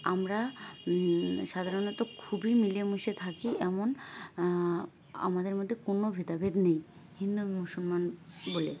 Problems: background sounds at intervals